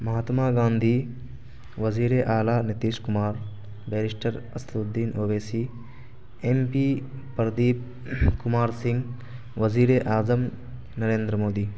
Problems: constant background noise